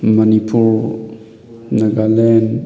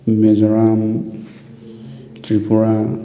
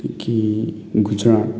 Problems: background conversations at intervals